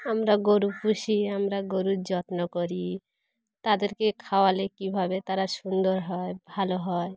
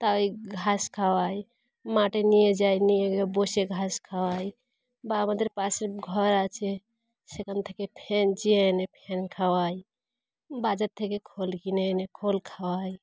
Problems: background sounds at intervals